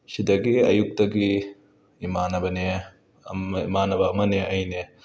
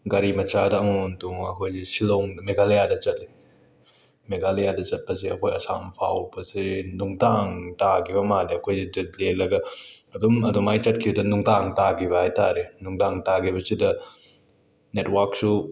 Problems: background sounds at intervals